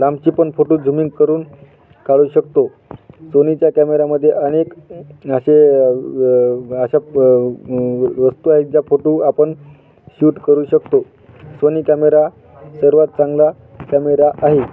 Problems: constant background noise